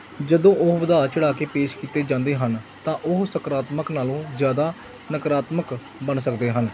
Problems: background sounds at intervals